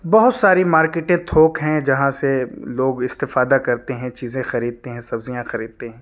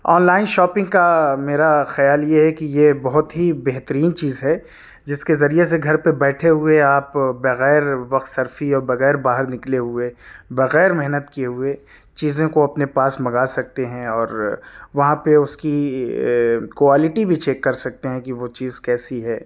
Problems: none marked